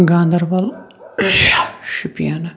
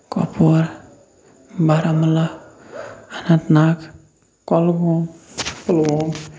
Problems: background sounds at intervals